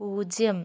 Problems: none marked